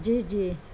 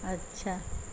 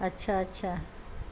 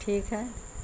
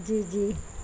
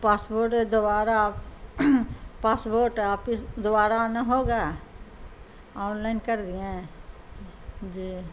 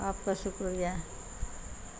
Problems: constant background noise